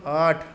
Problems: constant background noise